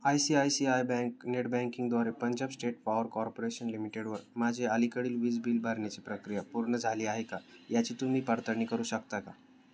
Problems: none marked